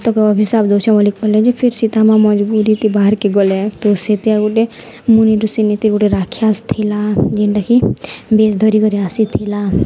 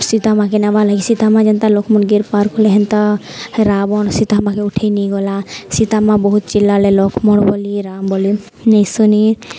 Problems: none marked